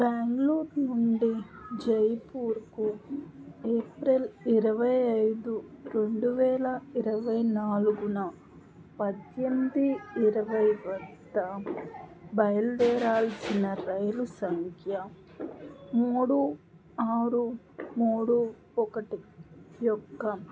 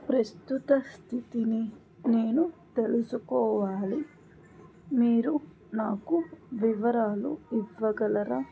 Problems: background sounds at intervals